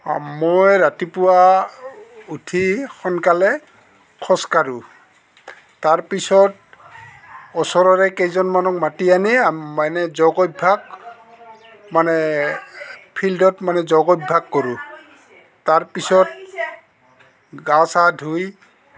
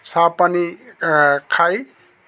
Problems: none marked